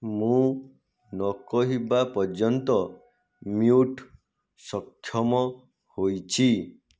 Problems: none marked